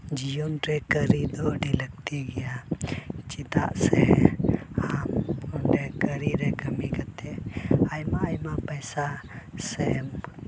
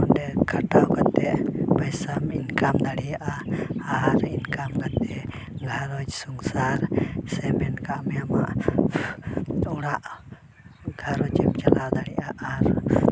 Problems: none marked